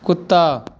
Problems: none marked